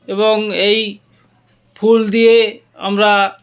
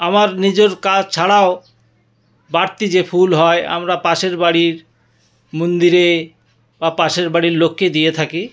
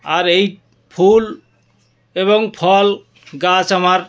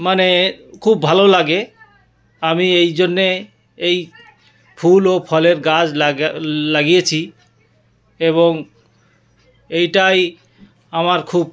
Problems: background sounds at intervals